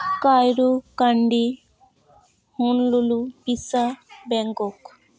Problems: constant background noise, continuous background conversations